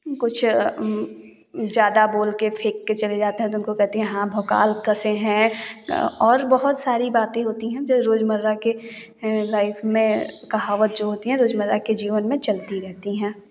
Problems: none marked